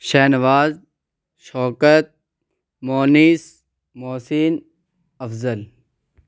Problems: none marked